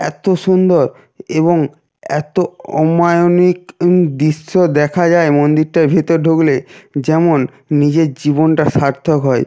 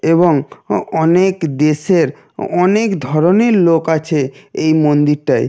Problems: constant background noise